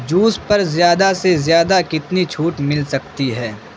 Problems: constant background noise